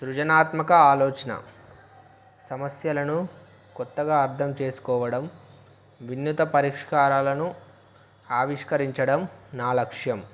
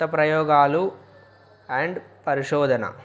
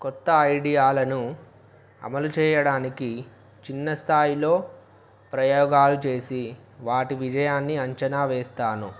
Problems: background sounds at intervals